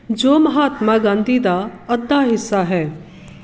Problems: background sounds at intervals